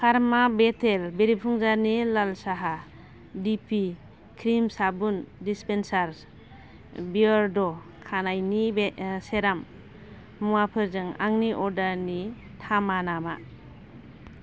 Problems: none marked